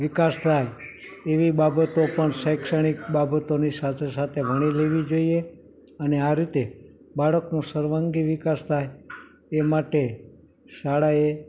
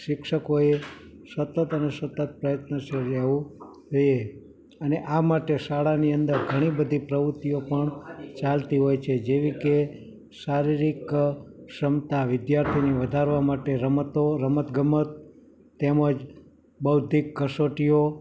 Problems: continuous background conversations